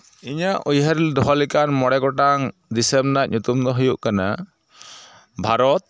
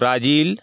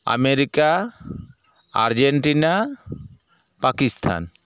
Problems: background sounds at intervals